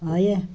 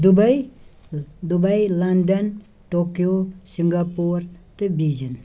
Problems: none marked